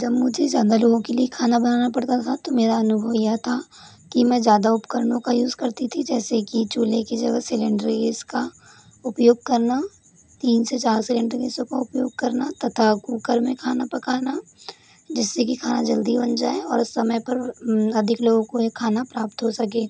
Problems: constant background noise